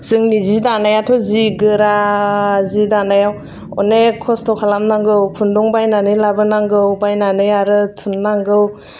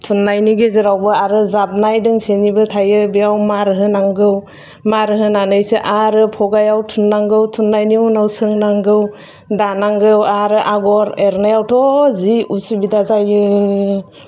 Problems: none marked